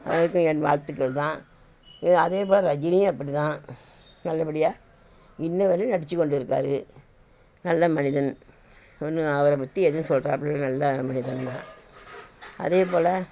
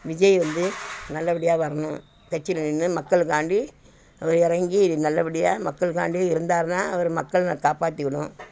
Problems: constant background noise